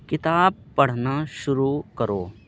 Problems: constant background noise